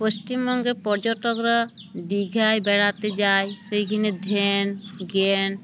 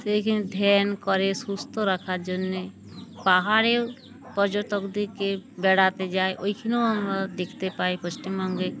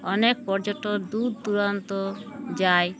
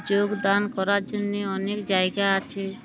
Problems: constant background noise, background conversations at intervals